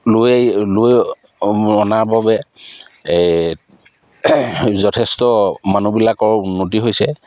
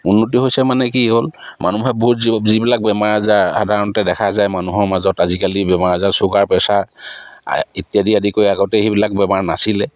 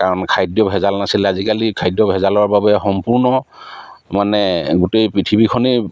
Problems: none marked